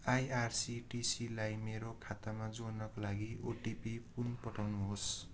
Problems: low volume